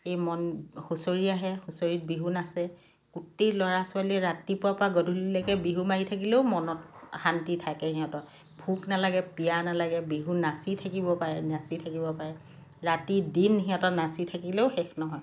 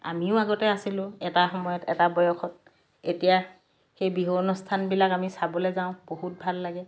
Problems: background sounds at intervals